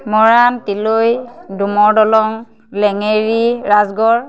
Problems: constant background noise